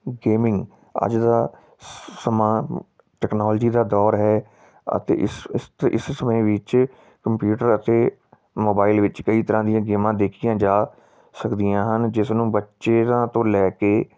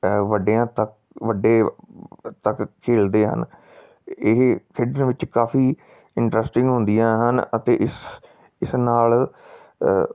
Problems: background sounds at intervals